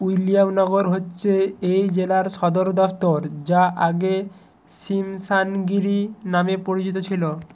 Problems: constant background noise